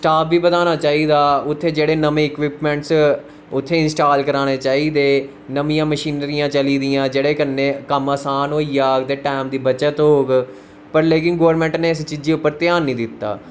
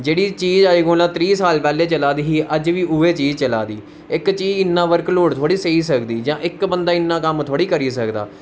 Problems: constant background noise